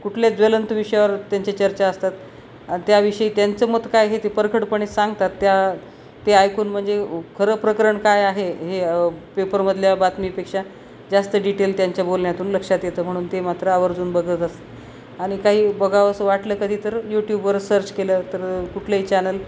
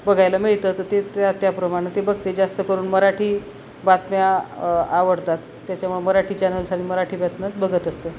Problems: none marked